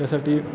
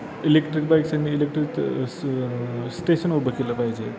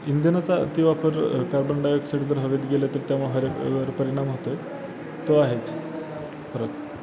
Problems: constant background noise, background conversations at intervals